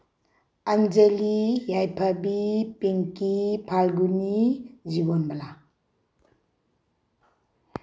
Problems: none marked